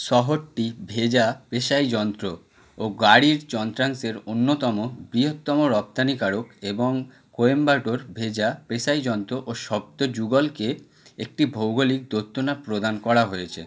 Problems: none marked